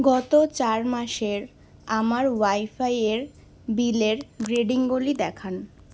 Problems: constant background noise